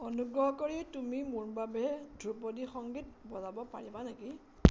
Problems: none marked